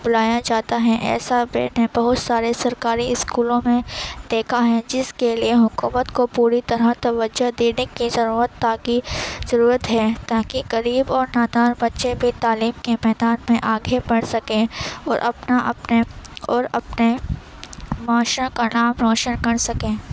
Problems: constant background noise